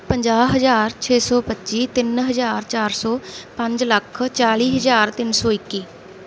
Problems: none marked